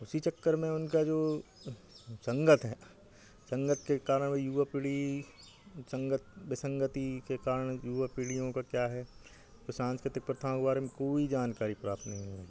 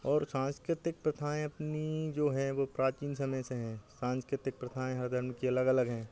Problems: constant background noise